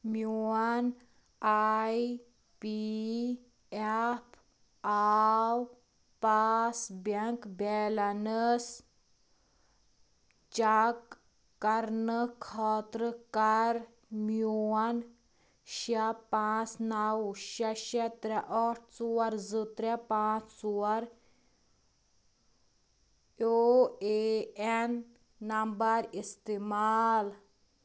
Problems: background sounds at intervals